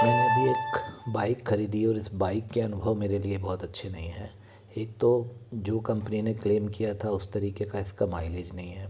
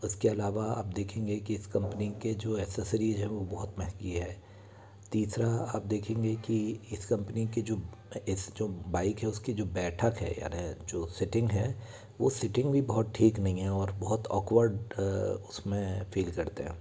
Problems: constant background noise, continuous background conversations